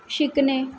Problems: none marked